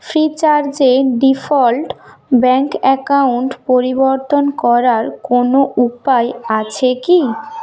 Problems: background sounds at intervals, background conversations at intervals